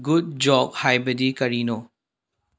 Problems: low volume